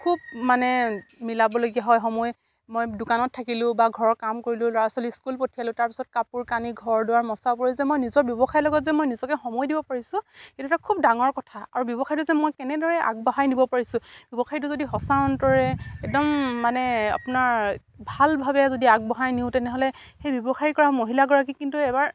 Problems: none marked